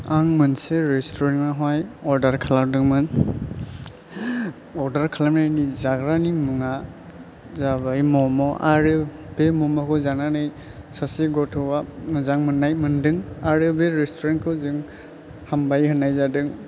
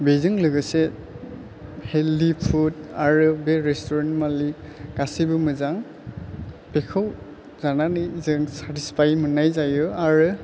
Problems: low volume